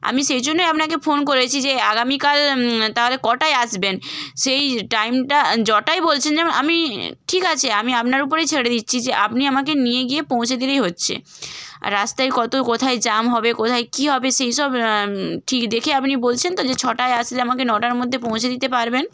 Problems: none marked